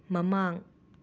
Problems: none marked